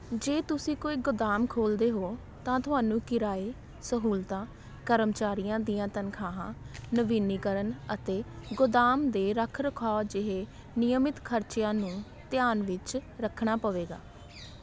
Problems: background sounds at intervals